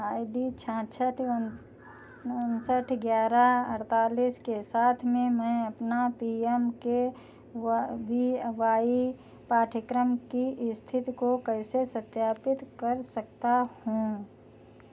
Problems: none marked